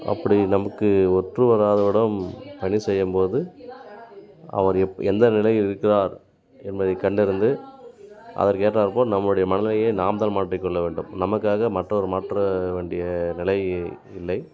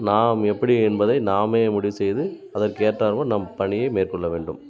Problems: background conversations at intervals